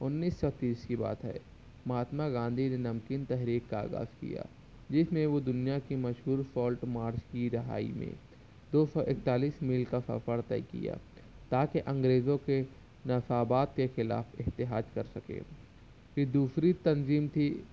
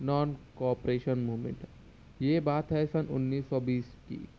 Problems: none marked